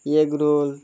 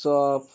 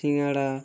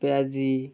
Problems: constant background noise